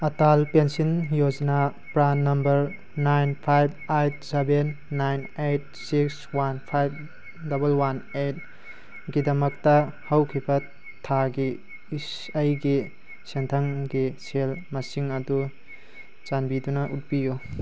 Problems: constant background noise